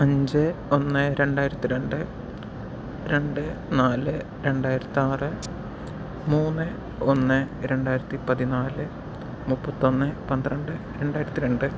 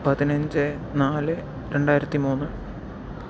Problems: background sounds at intervals, low volume